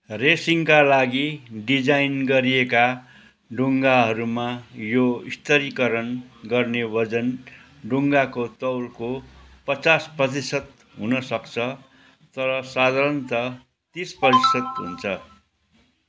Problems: none marked